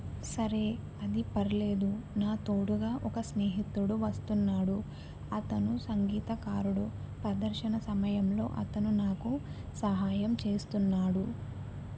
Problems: constant background noise, low volume